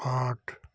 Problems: background sounds at intervals